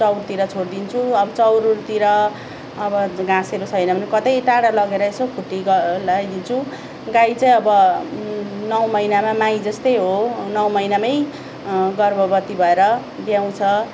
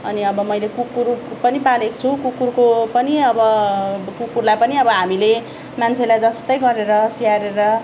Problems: none marked